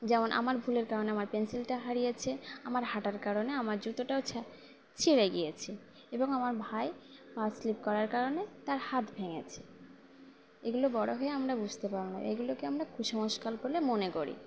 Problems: none marked